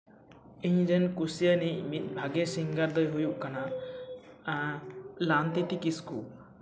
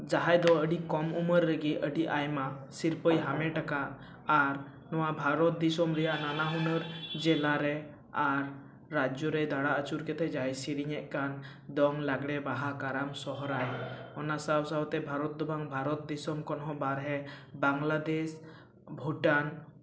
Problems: none marked